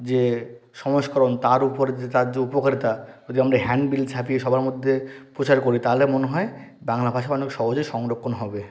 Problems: constant background noise